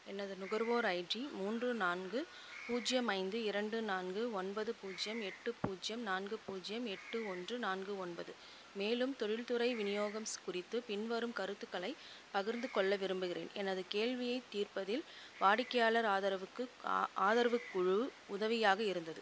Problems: constant background noise, low volume